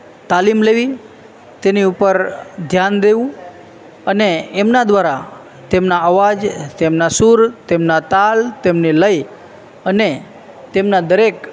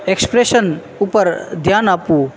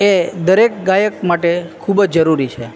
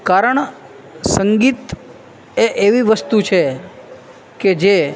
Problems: constant background noise